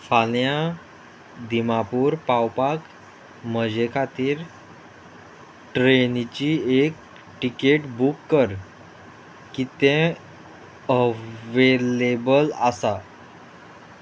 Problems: constant background noise